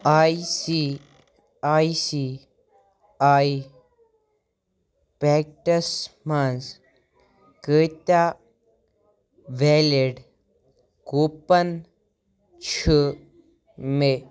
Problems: none marked